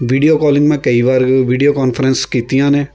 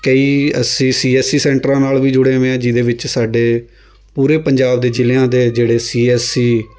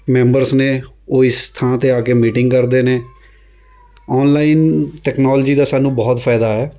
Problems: constant background noise